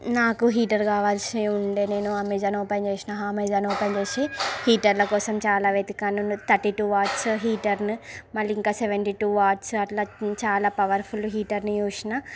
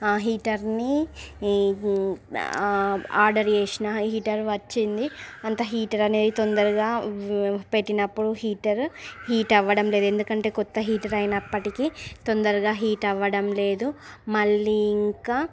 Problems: constant background noise, background conversations at intervals